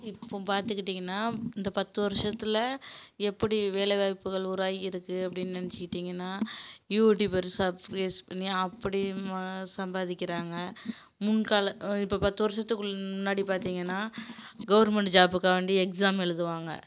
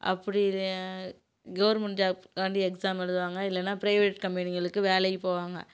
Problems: none marked